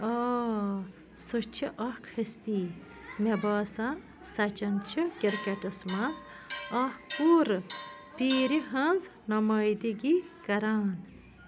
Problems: background sounds at intervals